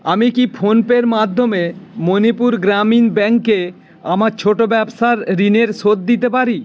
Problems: constant background noise, background conversations at intervals